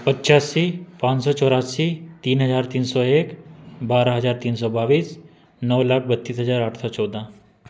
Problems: constant background noise